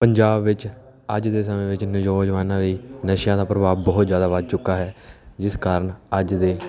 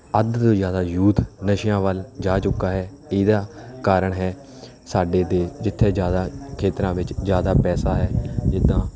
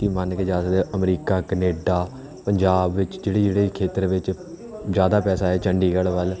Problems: background sounds at intervals, background conversations at intervals